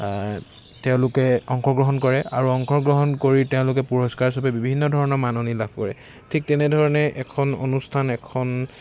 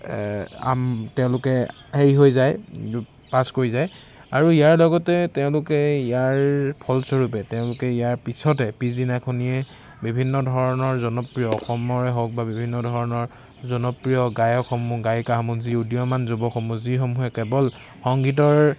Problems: constant background noise